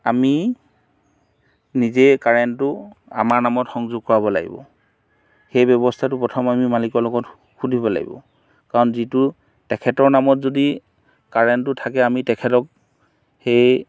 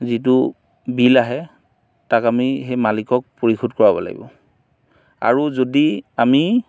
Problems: background sounds at intervals